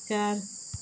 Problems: constant background noise